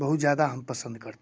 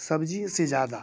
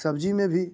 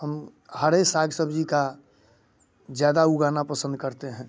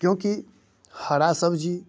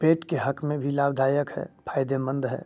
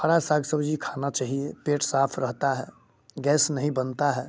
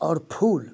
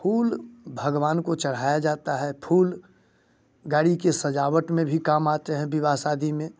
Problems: none marked